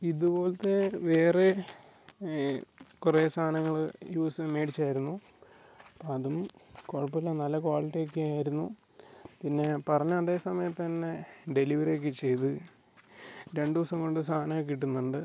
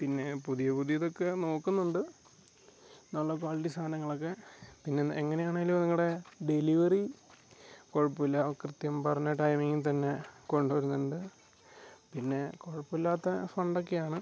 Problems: background sounds at intervals